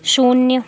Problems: none marked